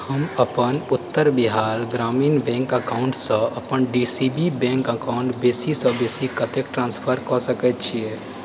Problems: background sounds at intervals